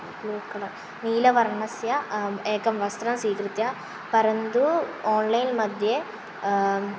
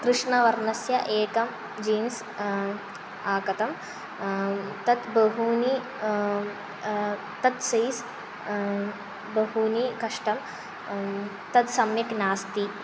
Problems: constant background noise